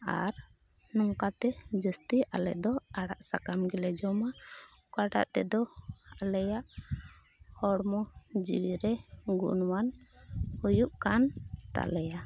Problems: none marked